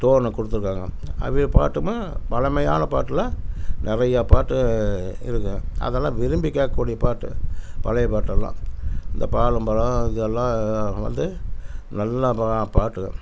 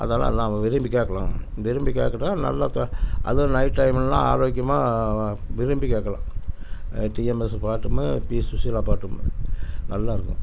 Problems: constant background noise